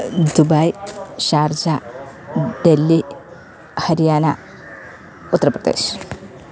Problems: none marked